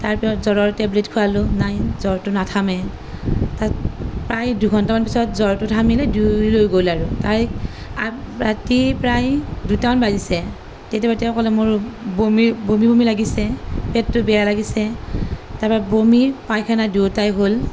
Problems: none marked